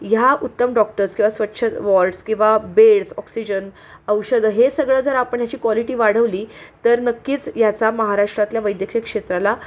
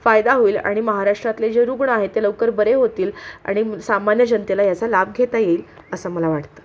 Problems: constant background noise